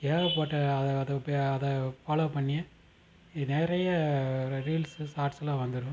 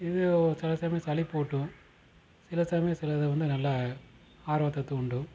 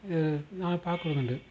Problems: constant background noise